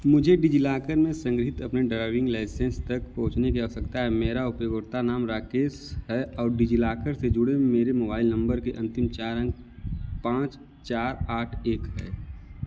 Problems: none marked